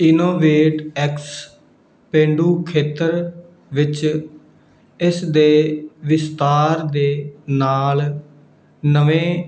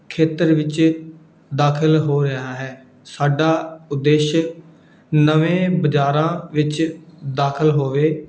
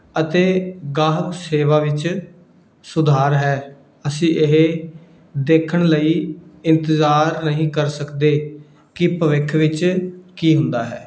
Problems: background sounds at intervals